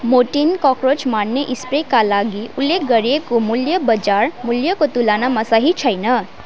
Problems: constant background noise